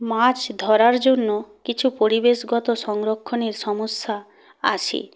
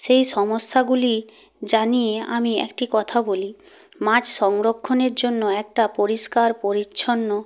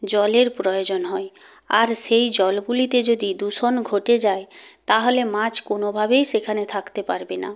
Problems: none marked